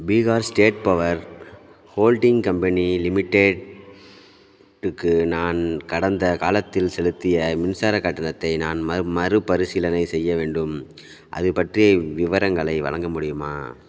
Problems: none marked